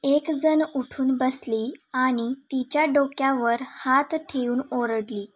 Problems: background sounds at intervals